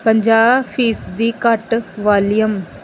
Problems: background sounds at intervals